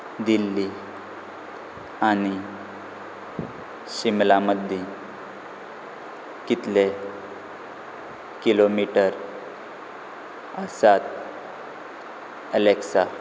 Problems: none marked